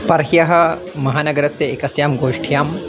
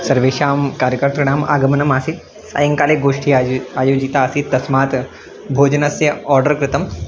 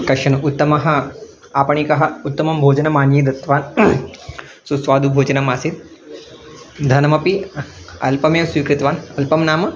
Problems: background sounds at intervals